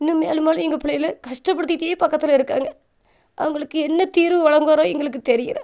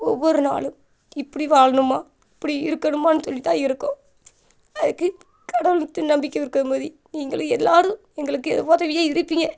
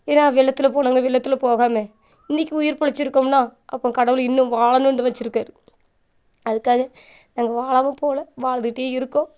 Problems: none marked